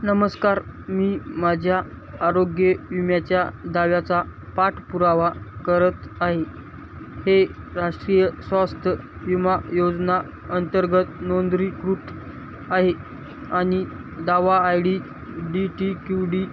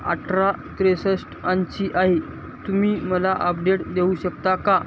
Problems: constant background noise